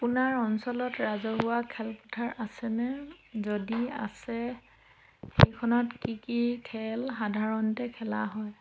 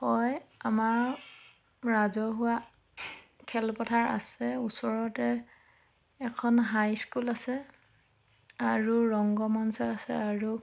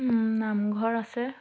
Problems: background sounds at intervals